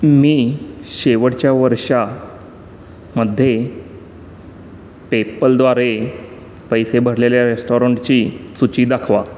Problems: none marked